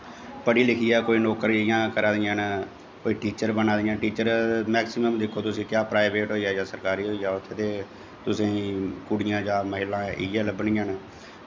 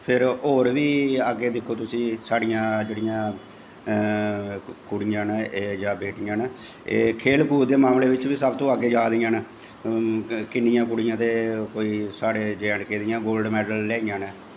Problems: echo